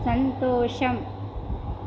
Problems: none marked